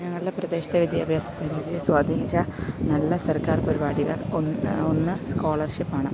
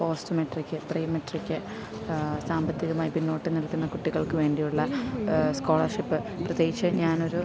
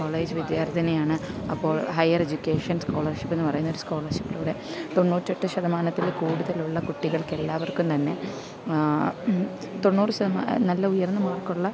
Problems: constant background noise, low volume